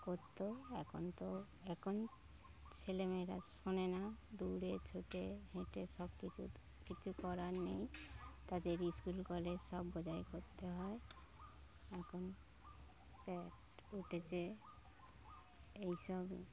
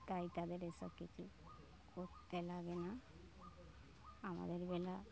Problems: none marked